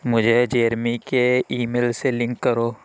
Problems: none marked